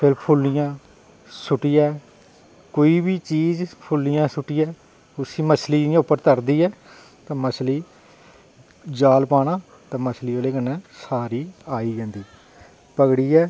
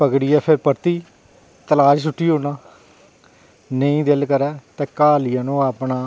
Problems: none marked